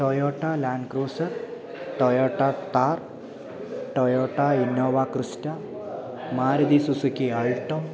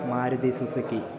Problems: constant background noise